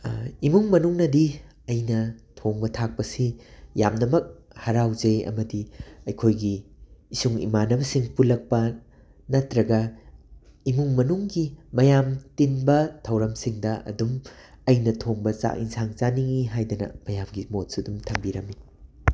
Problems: background sounds at intervals